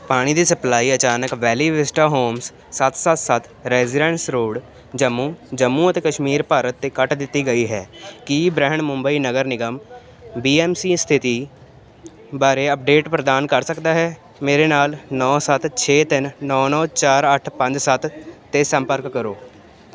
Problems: constant background noise